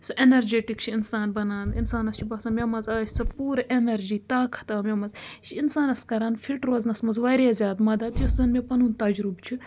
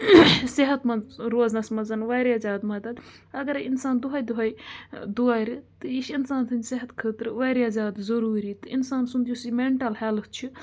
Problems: constant background noise